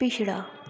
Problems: low volume